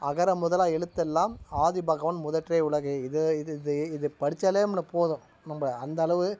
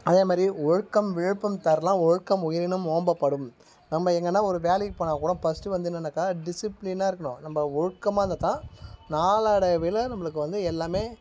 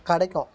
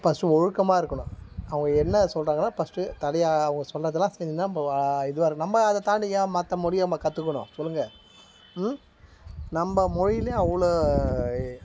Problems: background sounds at intervals